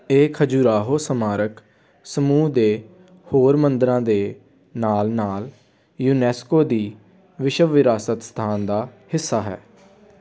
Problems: background sounds at intervals, background conversations at intervals